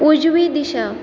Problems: constant background noise